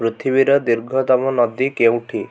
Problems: none marked